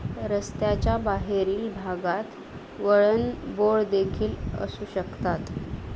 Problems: constant background noise